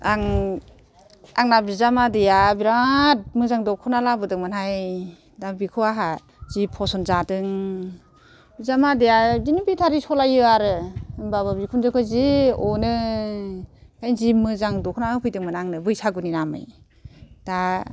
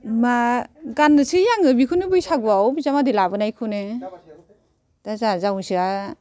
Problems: none marked